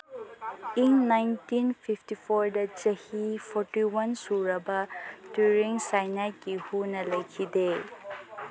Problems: background sounds at intervals, background conversations at intervals